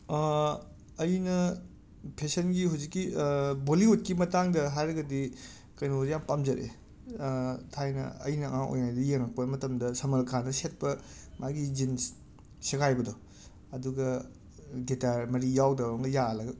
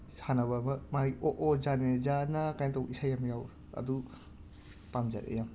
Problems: background sounds at intervals